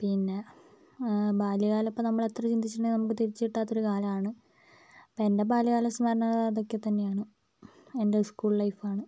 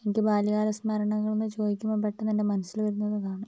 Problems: low volume